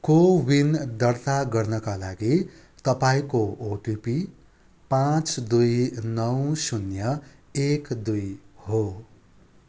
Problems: background sounds at intervals